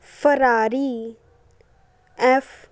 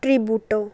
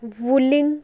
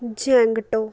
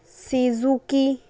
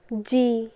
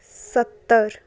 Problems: constant background noise